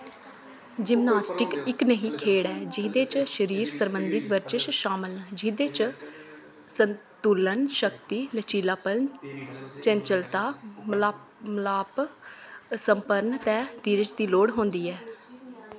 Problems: constant background noise